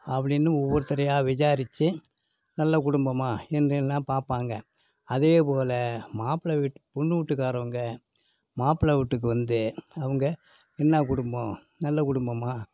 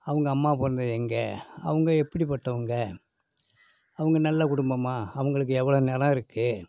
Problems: background sounds at intervals